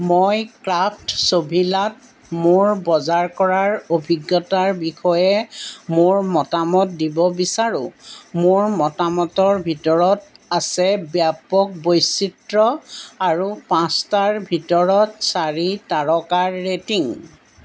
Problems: background sounds at intervals